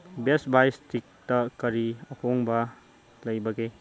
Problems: background sounds at intervals